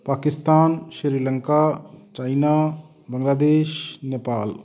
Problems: background conversations at intervals